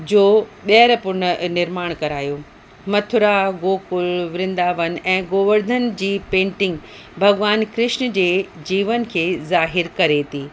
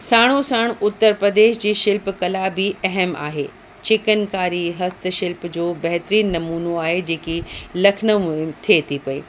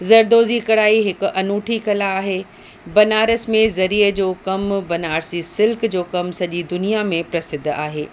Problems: constant background noise